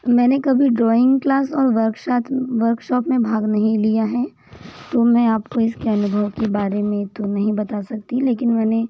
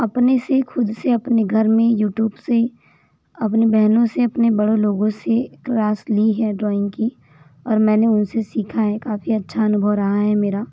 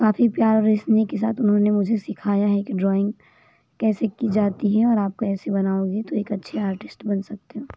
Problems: constant background noise